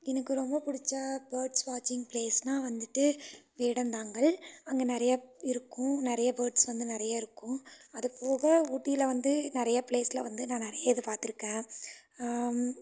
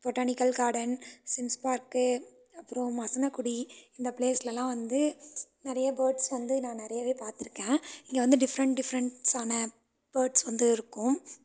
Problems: background sounds at intervals